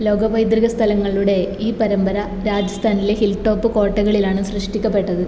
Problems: none marked